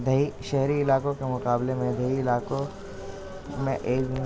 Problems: constant background noise, background conversations at intervals